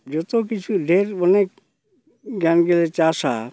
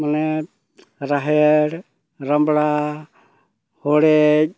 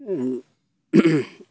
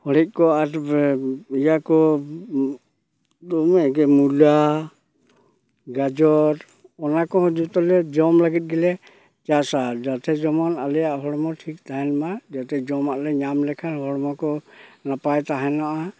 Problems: background sounds at intervals